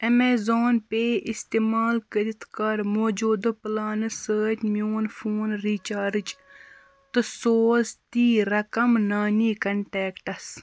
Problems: constant background noise